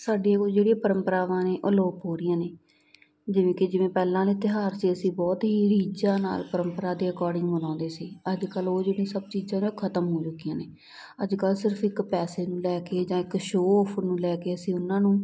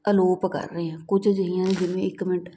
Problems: none marked